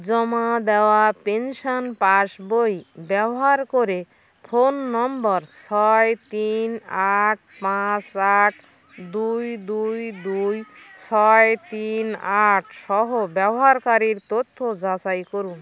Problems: constant background noise, background conversations at intervals